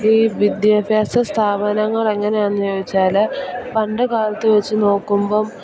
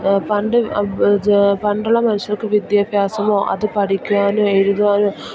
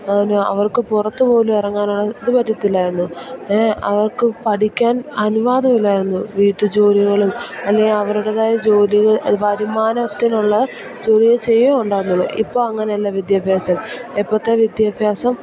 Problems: constant background noise